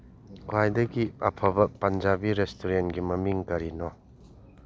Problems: low volume